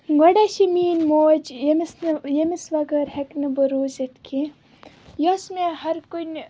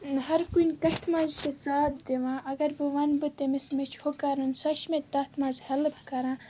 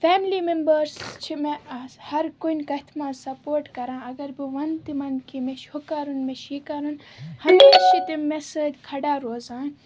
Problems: constant background noise, background conversations at intervals